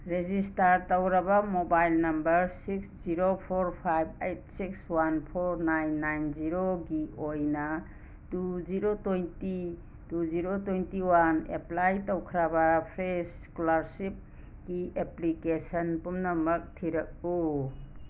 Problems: background sounds at intervals